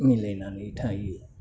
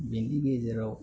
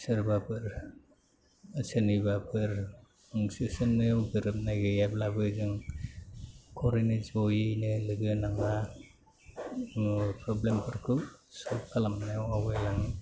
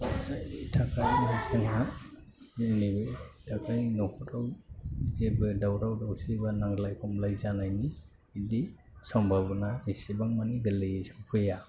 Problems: low volume